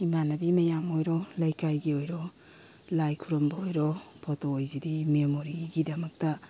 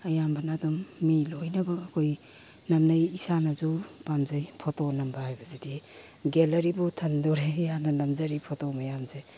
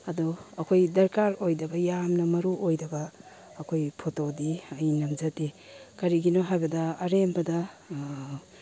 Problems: background sounds at intervals